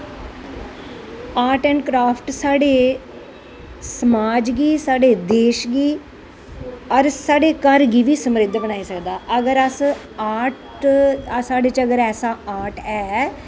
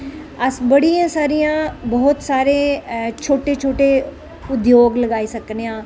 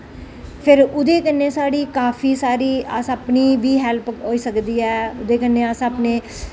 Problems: none marked